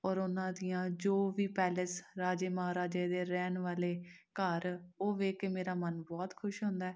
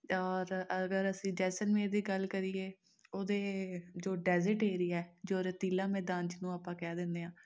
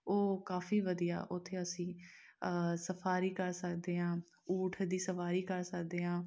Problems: none marked